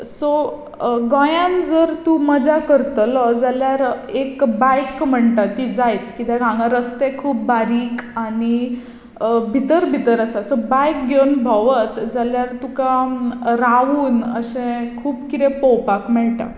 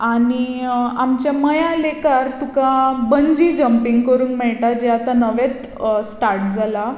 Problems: constant background noise, echo